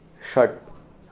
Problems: constant background noise